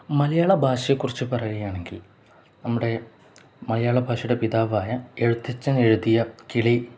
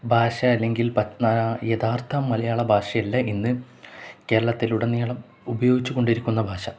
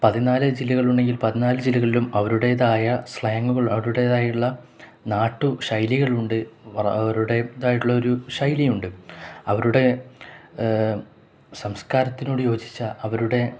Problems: none marked